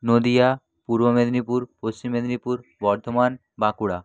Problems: low volume